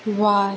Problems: constant background noise